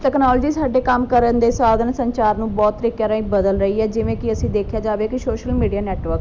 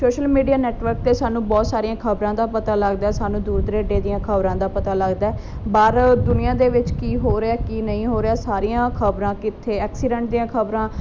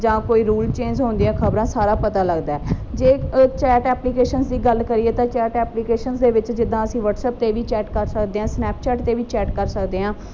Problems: none marked